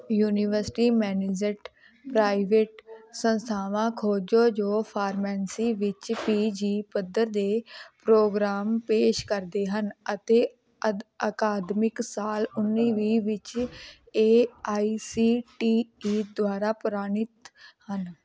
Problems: background conversations at intervals